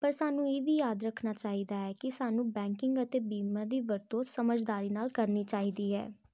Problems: none marked